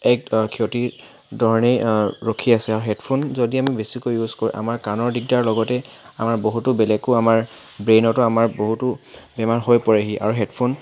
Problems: background sounds at intervals